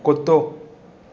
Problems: constant background noise